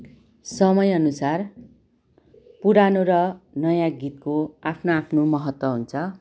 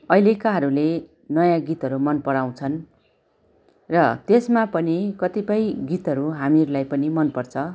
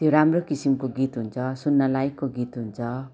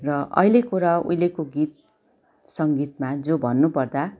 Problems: continuous background conversations